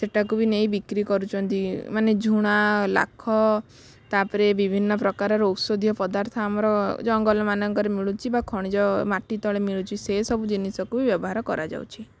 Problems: none marked